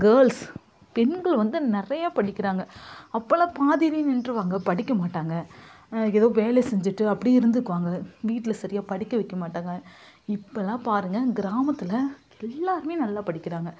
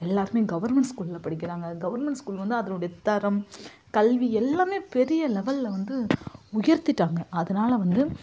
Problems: constant background noise